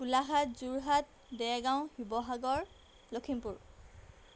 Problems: background sounds at intervals